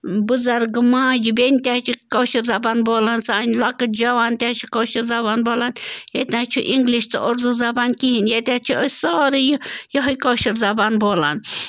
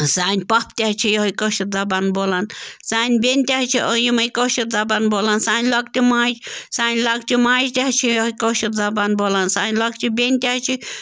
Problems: constant background noise